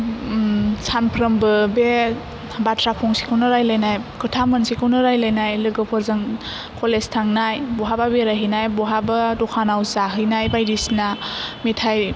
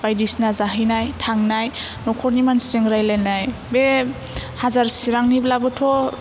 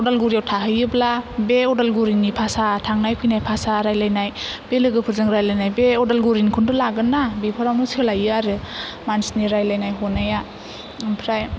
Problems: none marked